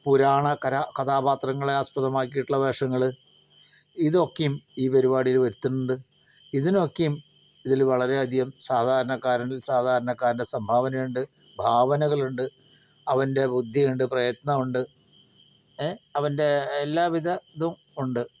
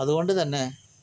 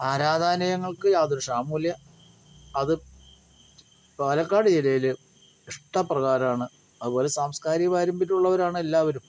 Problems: none marked